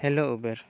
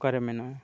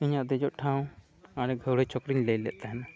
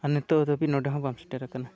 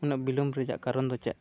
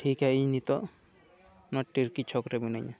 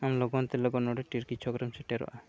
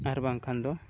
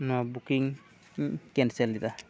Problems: continuous background conversations